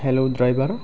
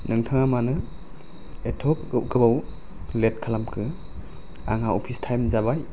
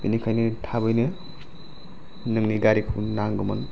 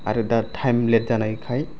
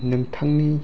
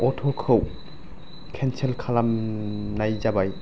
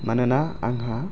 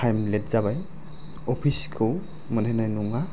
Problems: low volume